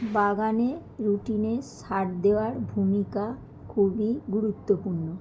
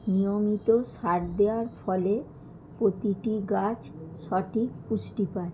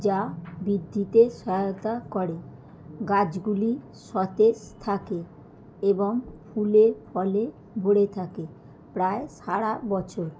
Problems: background sounds at intervals